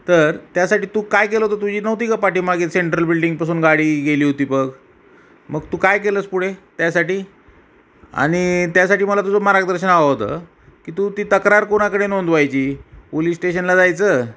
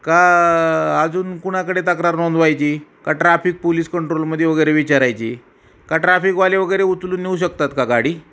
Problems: none marked